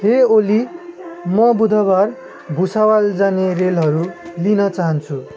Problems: constant background noise